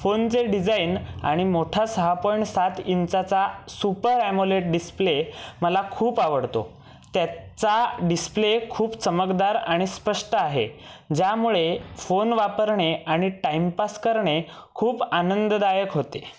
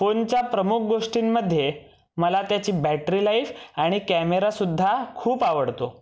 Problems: none marked